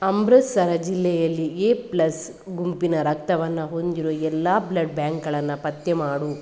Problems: none marked